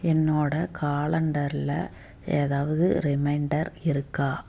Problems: background sounds at intervals